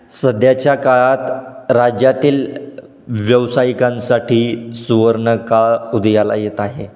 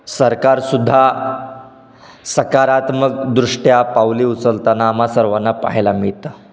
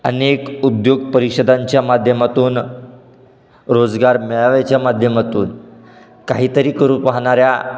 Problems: none marked